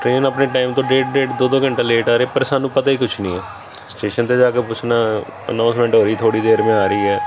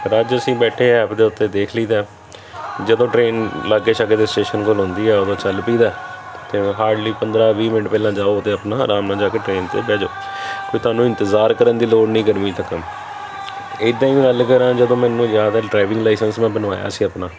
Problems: none marked